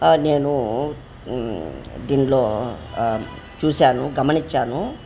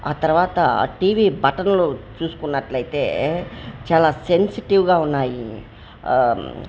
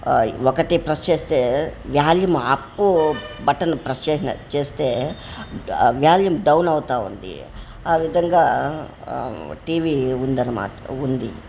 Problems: constant background noise, background conversations at intervals